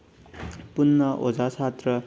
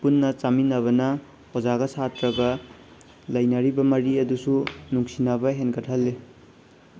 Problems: background sounds at intervals